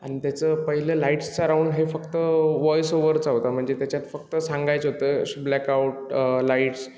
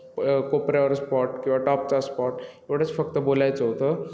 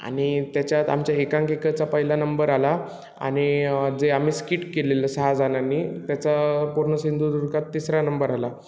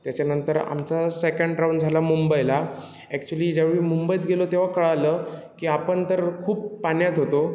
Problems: constant background noise